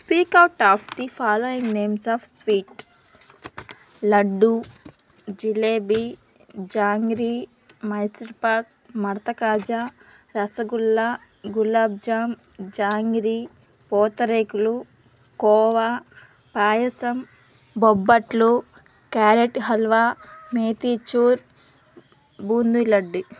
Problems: constant background noise, background conversations at intervals